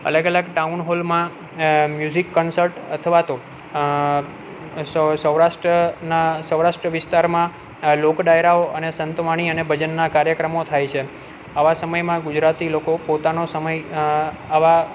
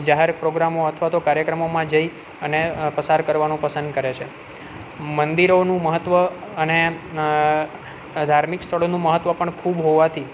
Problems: none marked